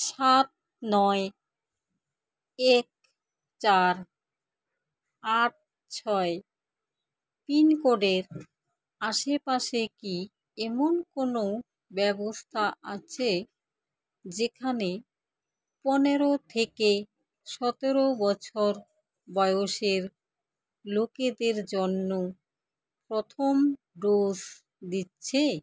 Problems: none marked